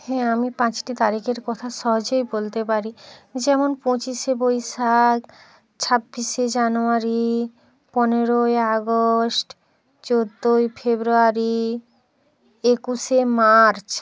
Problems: background conversations at intervals